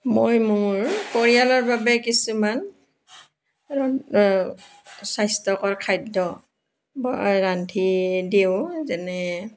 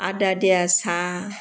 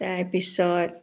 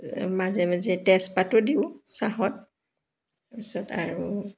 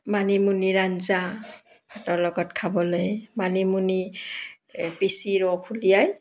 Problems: background sounds at intervals